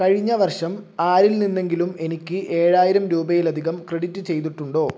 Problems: none marked